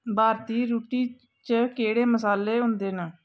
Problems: constant background noise